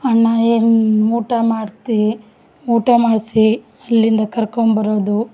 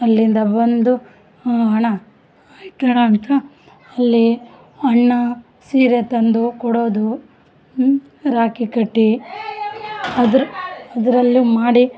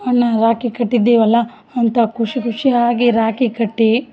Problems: background sounds at intervals